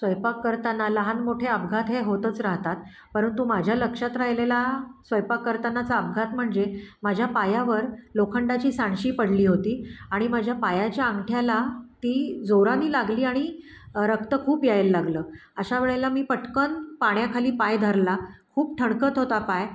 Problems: none marked